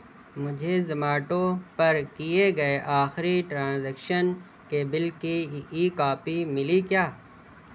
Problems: none marked